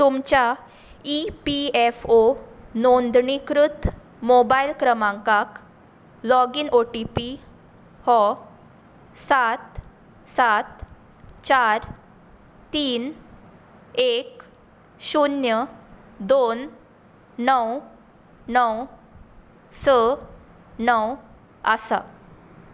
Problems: background sounds at intervals